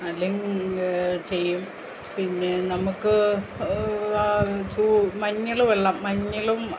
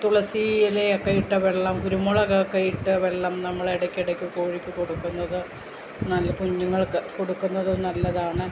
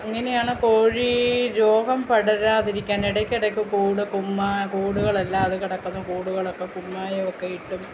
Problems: constant background noise, low volume